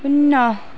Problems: constant background noise